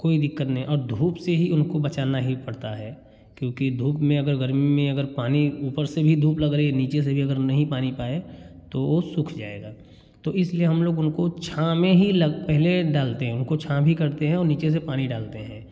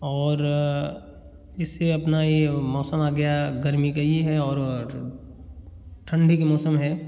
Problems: background sounds at intervals